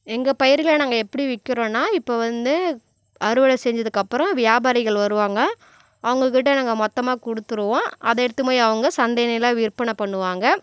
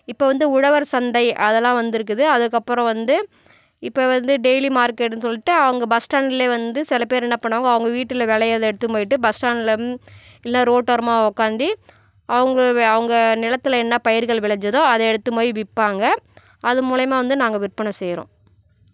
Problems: none marked